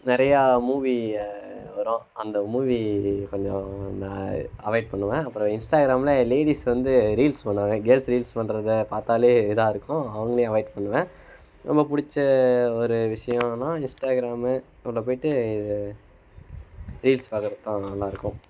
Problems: constant background noise